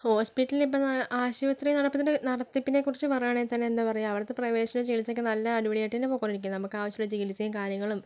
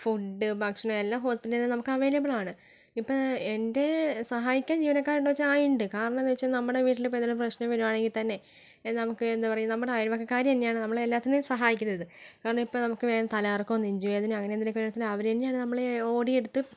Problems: low volume